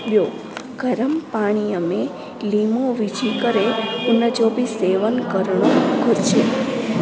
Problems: constant background noise